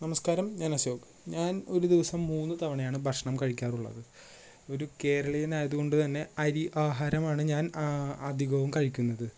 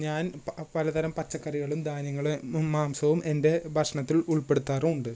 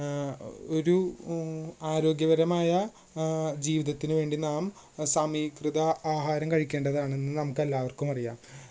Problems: low volume